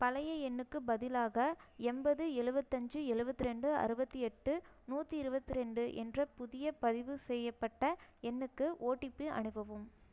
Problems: low volume